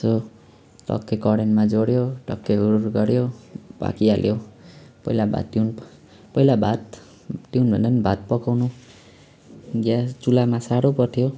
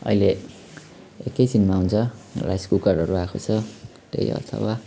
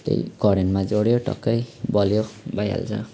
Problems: none marked